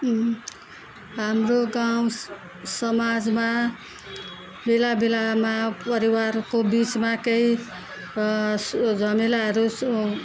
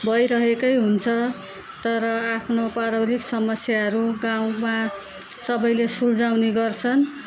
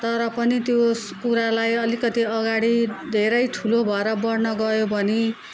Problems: none marked